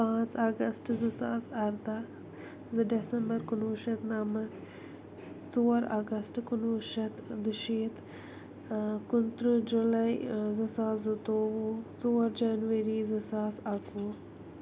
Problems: none marked